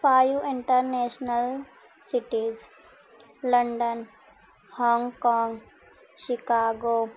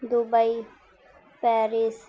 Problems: none marked